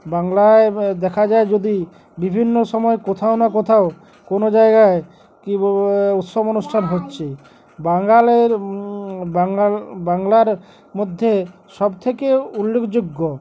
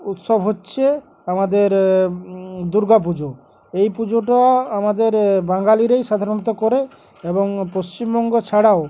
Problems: none marked